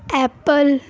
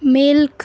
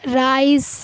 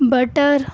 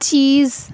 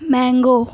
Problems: constant background noise